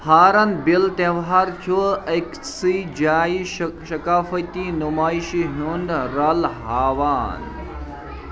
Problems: constant background noise, continuous background conversations